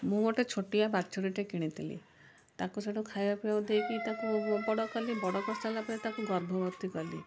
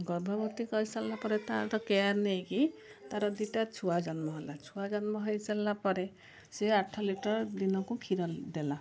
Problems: none marked